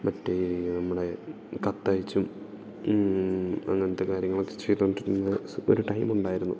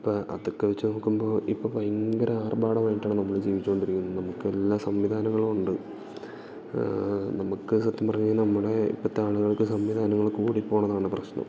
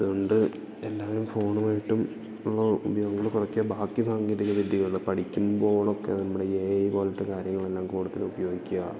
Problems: background sounds at intervals, low volume